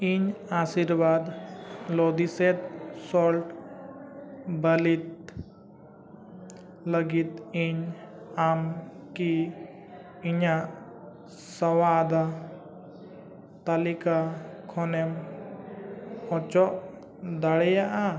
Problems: background sounds at intervals